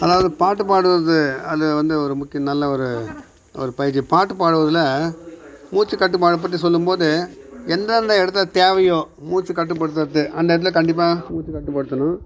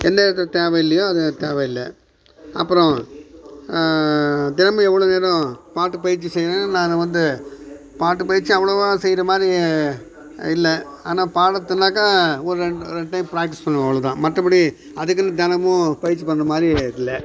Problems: background sounds at intervals